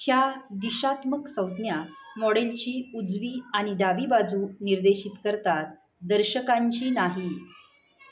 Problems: background sounds at intervals, background conversations at intervals